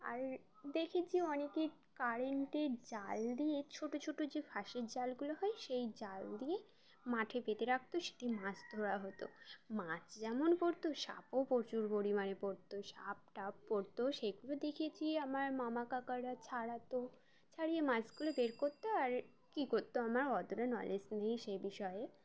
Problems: constant background noise